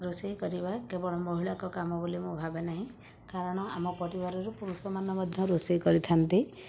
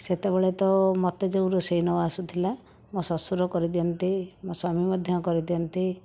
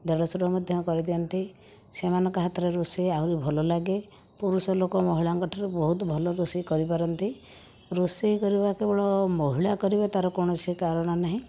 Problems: background sounds at intervals